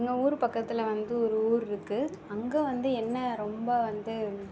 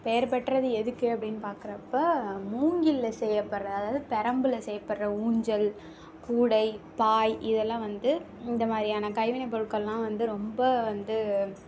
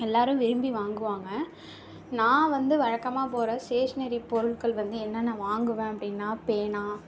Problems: background sounds at intervals